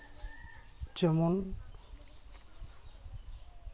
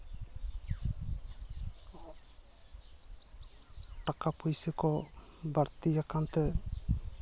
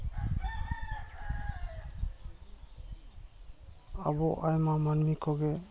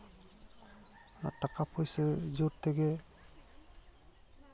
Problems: none marked